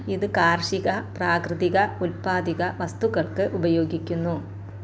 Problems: constant background noise